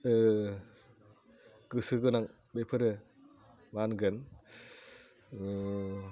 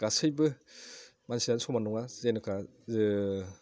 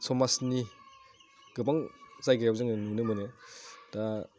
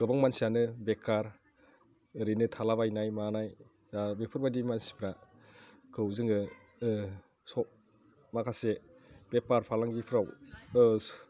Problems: none marked